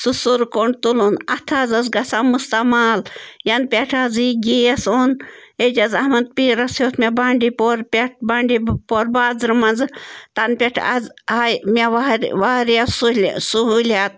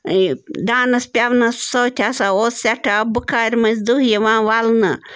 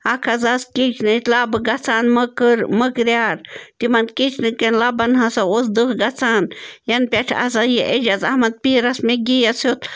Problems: constant background noise